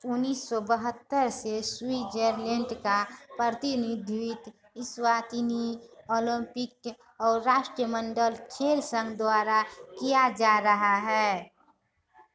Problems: constant background noise, continuous background conversations